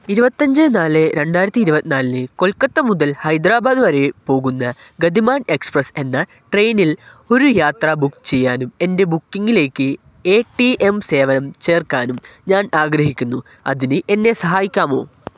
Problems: none marked